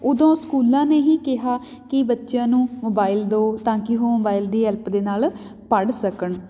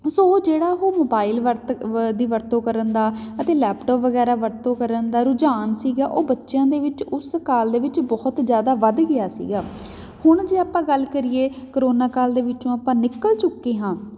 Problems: background sounds at intervals